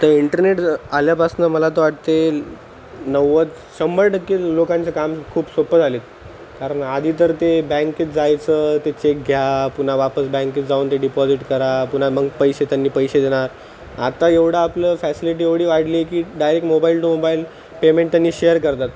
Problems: constant background noise